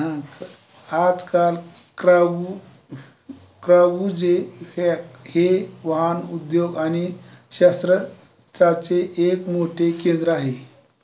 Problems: constant background noise